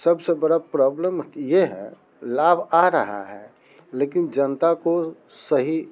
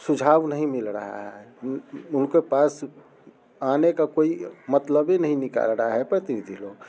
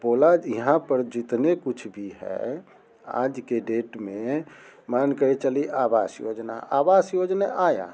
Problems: none marked